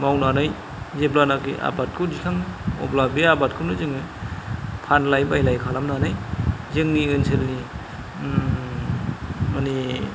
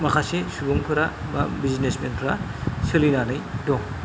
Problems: none marked